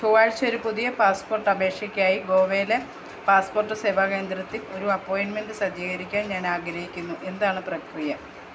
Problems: none marked